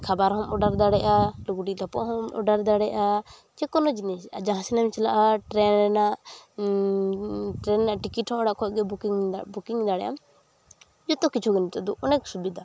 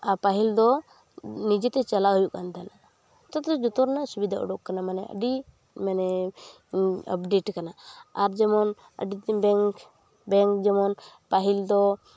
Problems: none marked